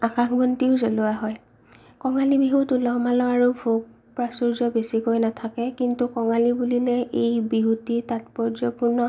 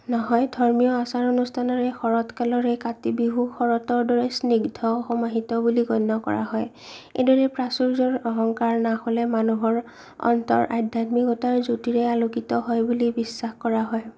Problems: low volume